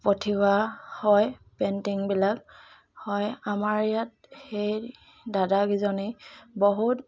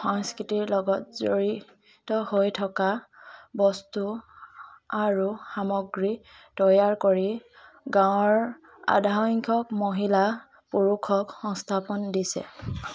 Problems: background sounds at intervals, continuous background conversations